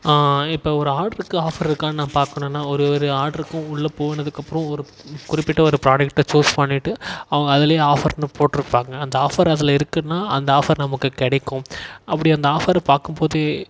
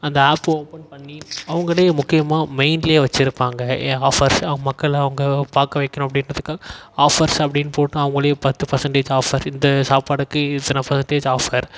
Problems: echo